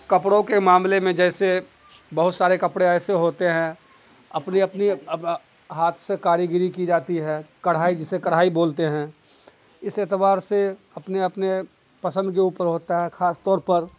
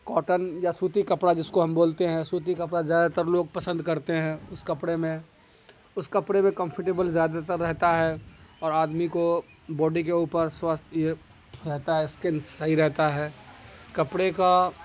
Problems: constant background noise